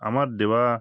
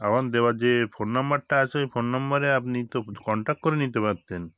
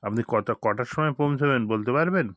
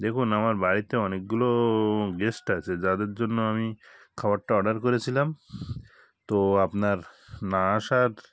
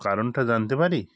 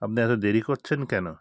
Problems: constant background noise